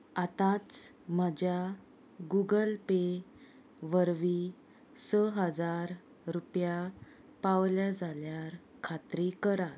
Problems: none marked